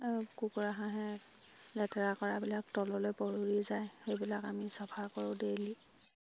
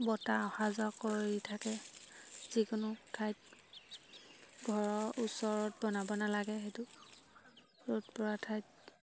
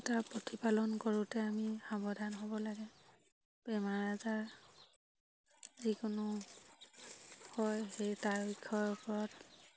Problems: none marked